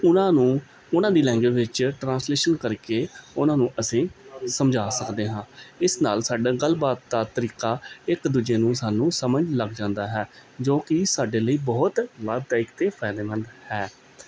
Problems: background sounds at intervals